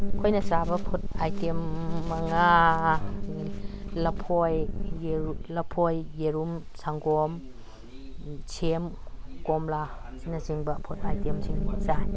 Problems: background sounds at intervals, background conversations at intervals